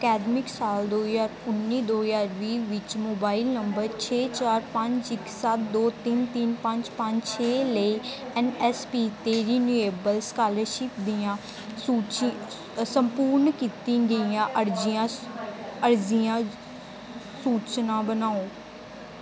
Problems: background sounds at intervals